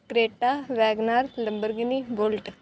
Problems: none marked